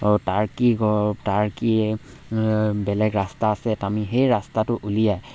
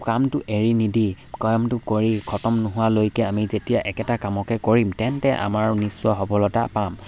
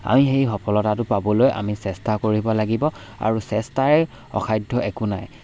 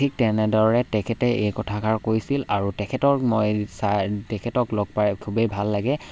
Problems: none marked